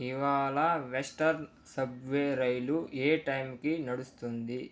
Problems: low volume